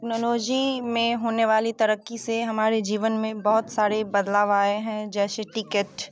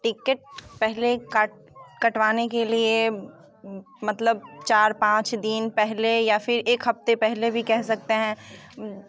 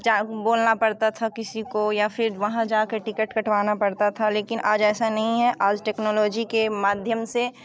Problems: constant background noise